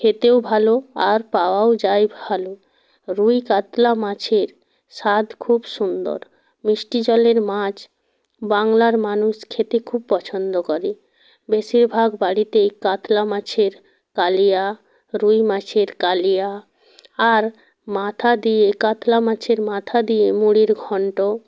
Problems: none marked